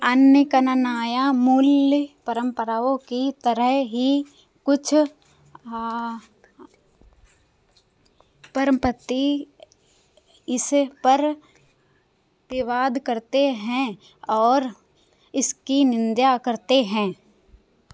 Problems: none marked